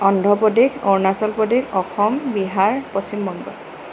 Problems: constant background noise